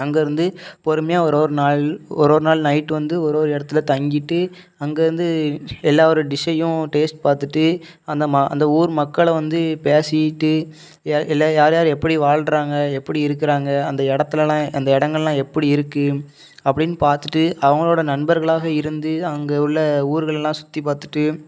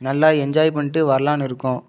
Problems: none marked